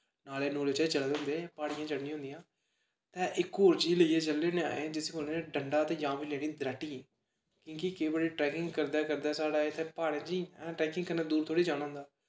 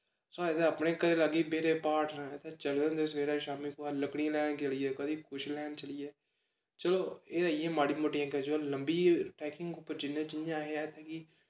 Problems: background sounds at intervals, echo